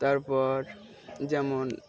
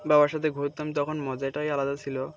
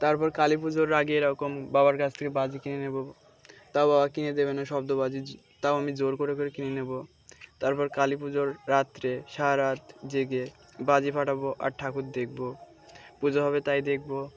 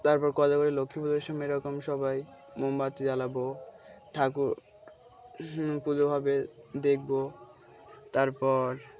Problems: background sounds at intervals, background conversations at intervals